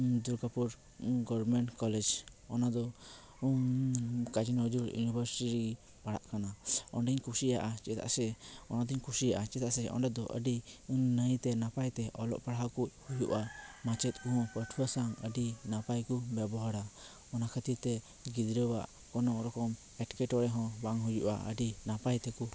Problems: none marked